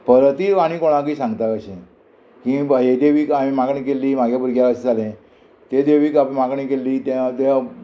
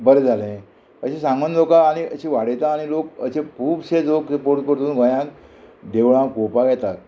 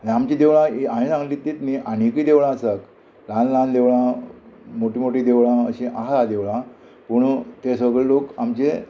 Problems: constant background noise